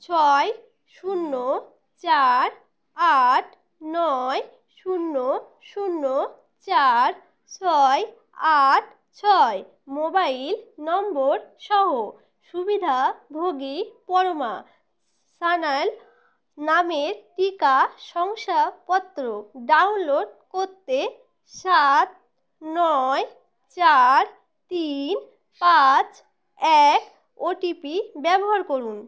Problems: background sounds at intervals